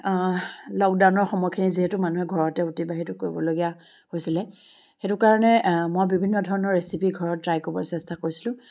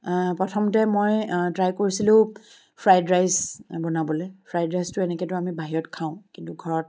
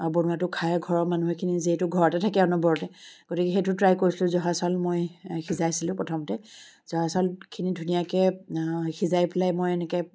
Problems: constant background noise